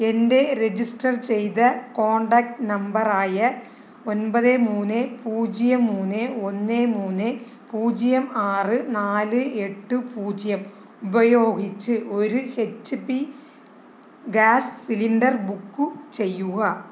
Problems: none marked